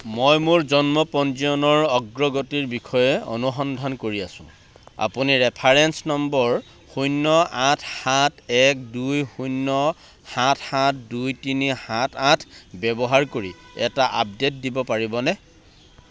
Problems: none marked